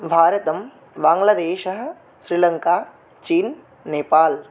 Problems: none marked